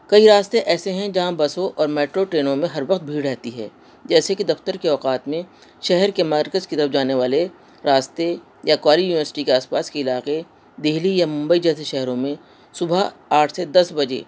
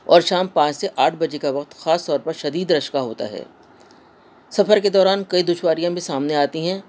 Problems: constant background noise